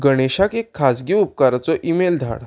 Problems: none marked